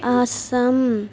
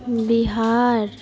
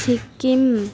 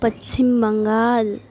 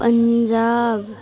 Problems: background sounds at intervals